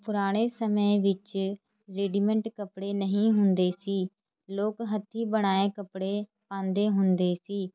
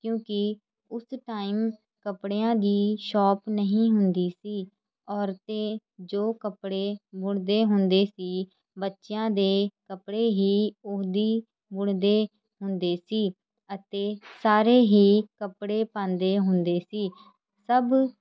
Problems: background conversations at intervals